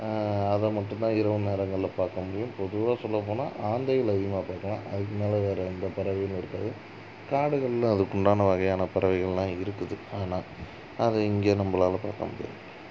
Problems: constant background noise